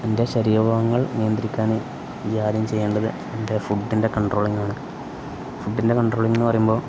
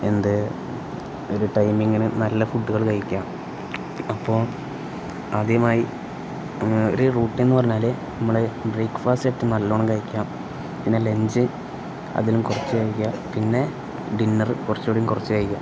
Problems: constant background noise